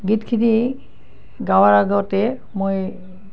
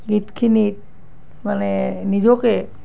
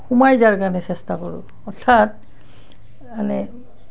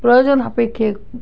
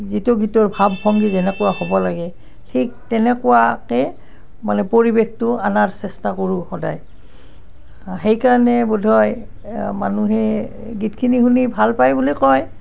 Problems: constant background noise